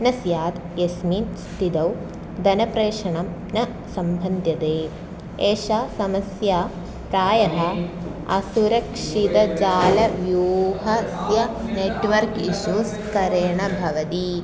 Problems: background sounds at intervals